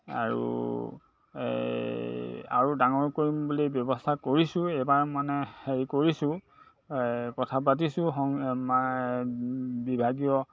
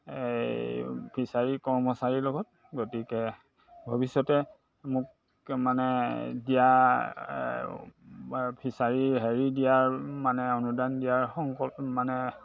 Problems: constant background noise, background conversations at intervals